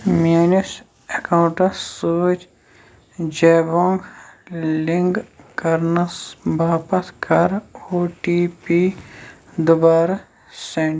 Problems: background sounds at intervals